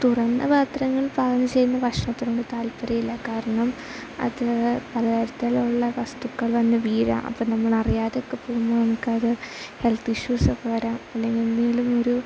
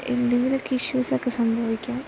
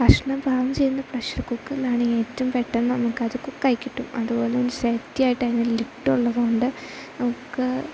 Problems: constant background noise